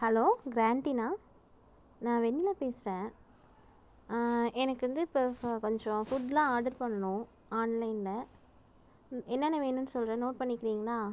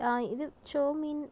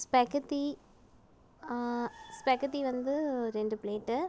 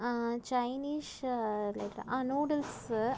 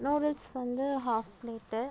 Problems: background sounds at intervals